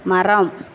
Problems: constant background noise